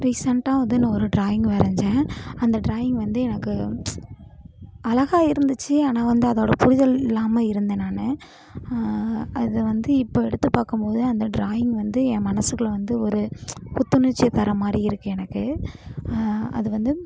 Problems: background sounds at intervals